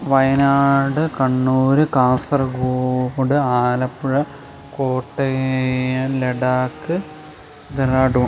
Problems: constant background noise